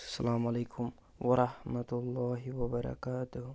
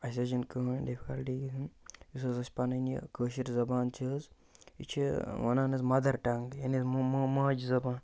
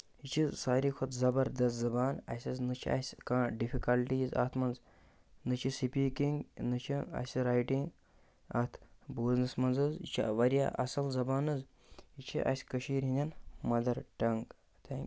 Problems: constant background noise